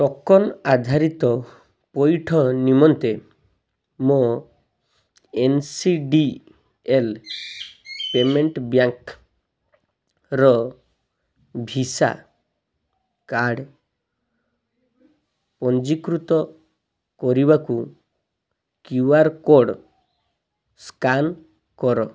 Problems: none marked